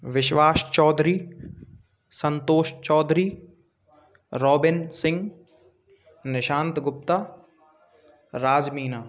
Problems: background sounds at intervals, continuous background conversations